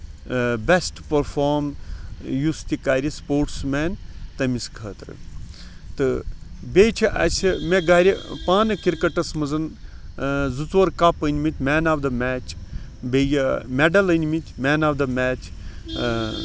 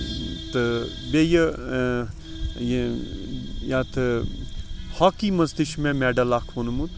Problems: constant background noise